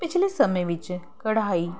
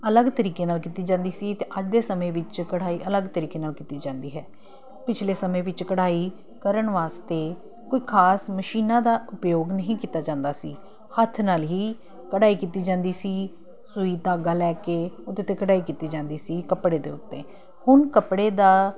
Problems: none marked